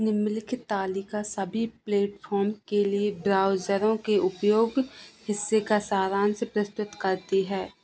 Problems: constant background noise